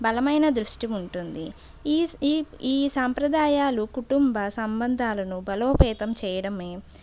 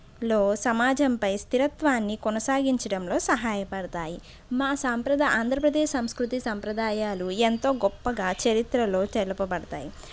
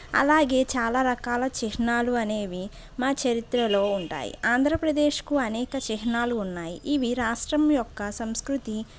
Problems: background sounds at intervals